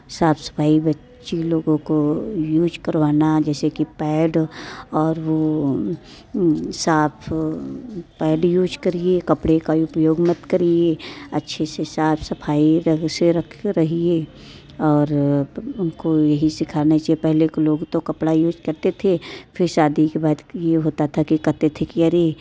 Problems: none marked